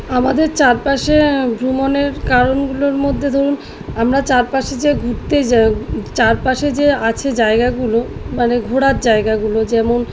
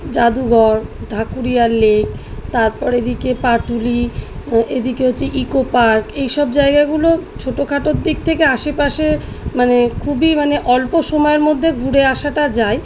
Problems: background sounds at intervals